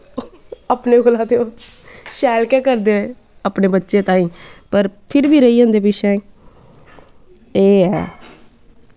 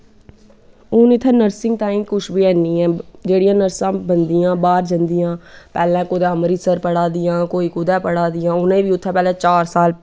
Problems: background sounds at intervals